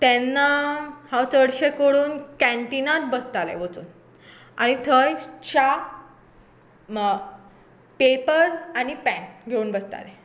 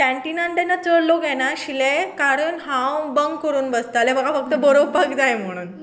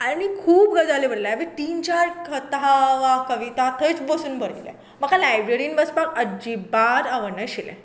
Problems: background sounds at intervals